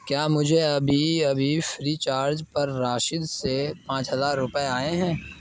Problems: constant background noise